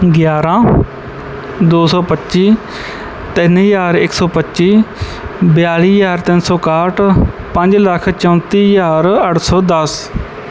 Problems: background sounds at intervals